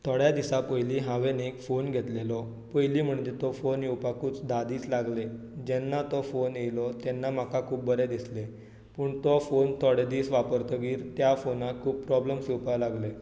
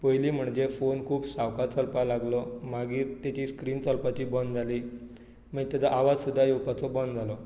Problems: low volume